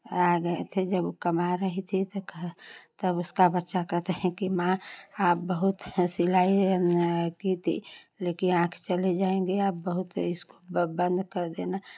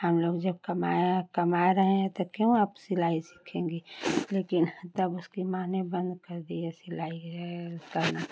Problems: constant background noise, continuous background conversations